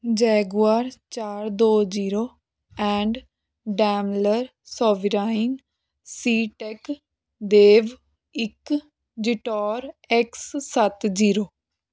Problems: background sounds at intervals